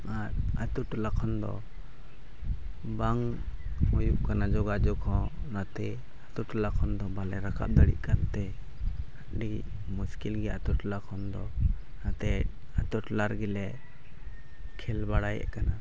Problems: none marked